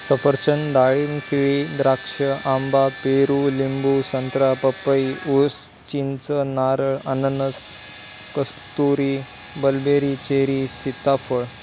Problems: constant background noise